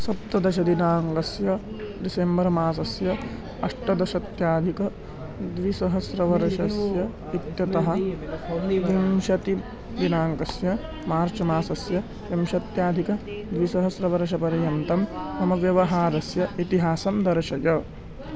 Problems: background sounds at intervals